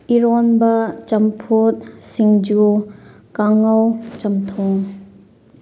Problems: none marked